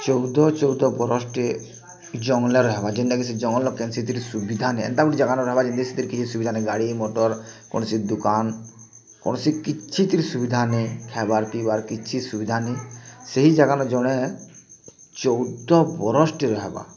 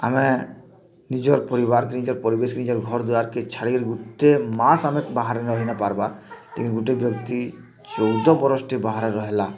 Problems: constant background noise, continuous background conversations